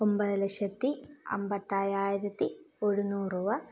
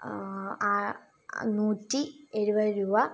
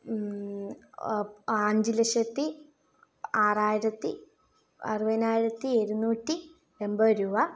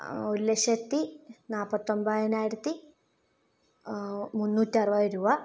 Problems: low volume